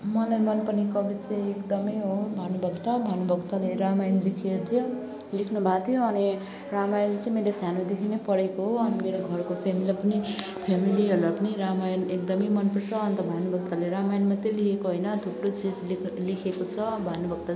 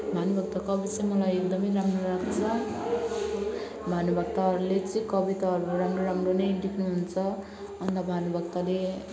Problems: background sounds at intervals, background conversations at intervals